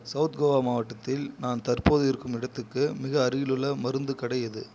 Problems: none marked